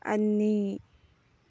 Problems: low volume